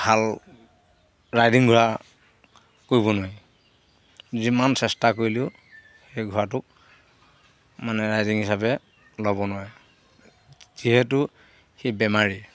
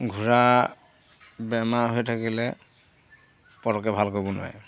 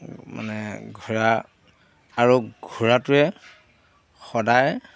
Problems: none marked